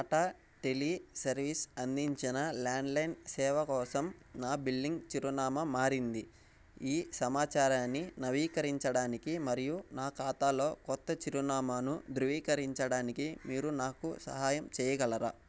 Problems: background sounds at intervals